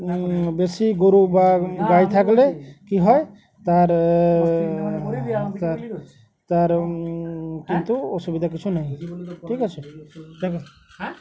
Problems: constant background noise, background conversations at intervals